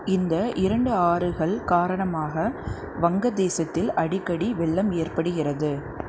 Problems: constant background noise